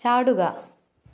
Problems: none marked